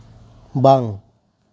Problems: none marked